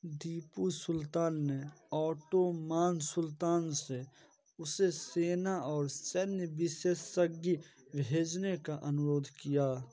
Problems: none marked